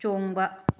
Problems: none marked